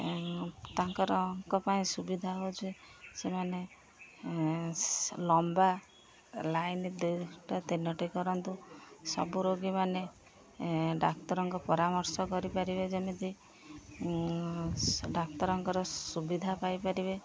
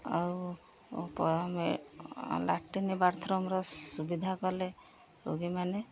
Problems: constant background noise, continuous background conversations